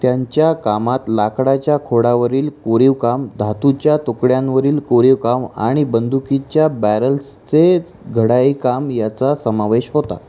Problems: constant background noise